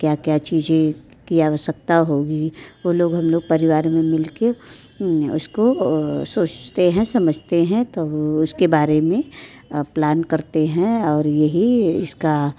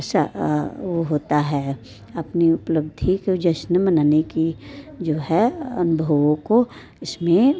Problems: background sounds at intervals, background conversations at intervals